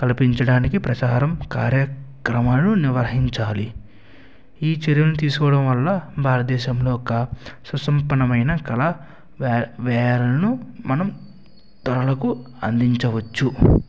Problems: constant background noise